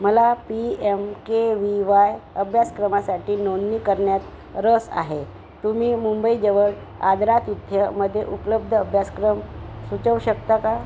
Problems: constant background noise